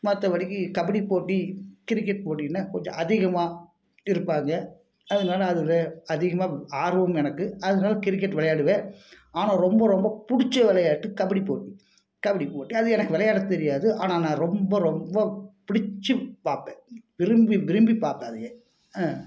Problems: constant background noise